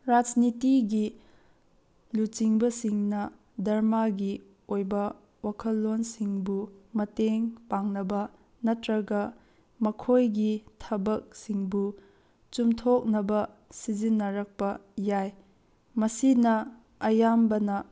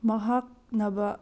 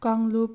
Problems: none marked